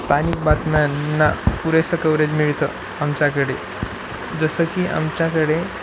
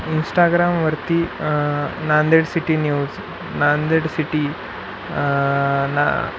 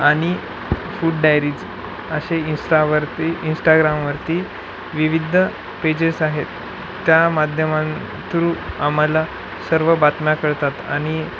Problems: none marked